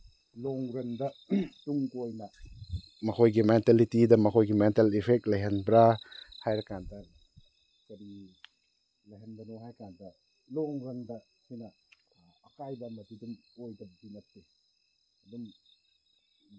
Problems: background sounds at intervals